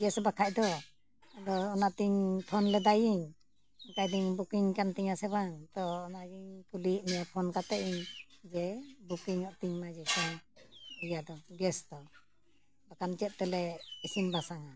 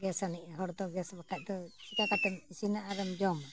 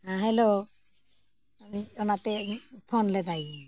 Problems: none marked